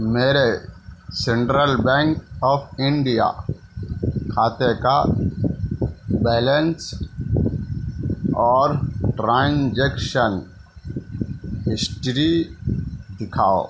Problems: background sounds at intervals